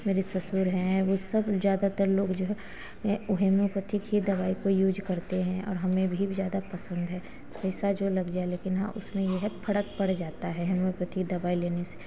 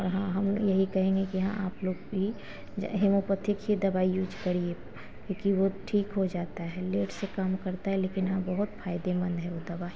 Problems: none marked